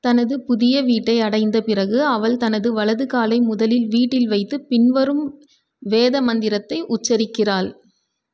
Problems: none marked